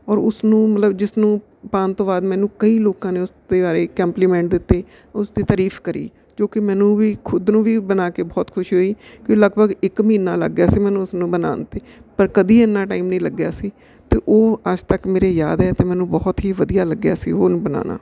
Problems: none marked